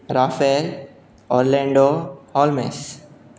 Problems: none marked